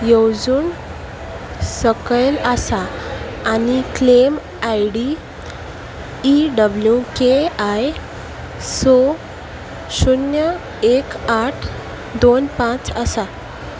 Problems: constant background noise